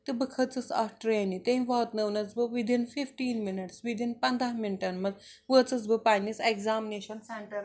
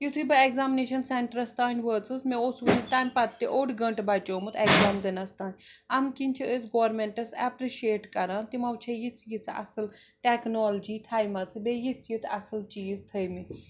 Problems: background sounds at intervals